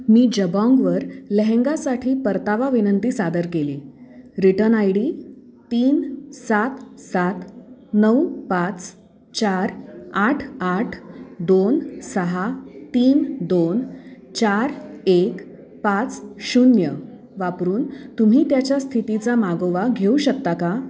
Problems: constant background noise, background conversations at intervals